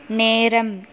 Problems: constant background noise